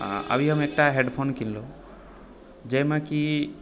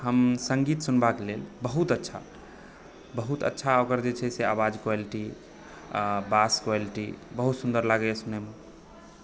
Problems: background sounds at intervals, background conversations at intervals